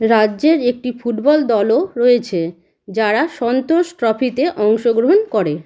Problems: background sounds at intervals